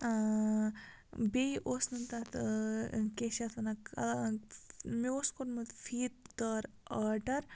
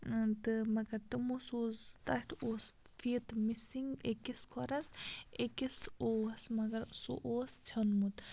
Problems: constant background noise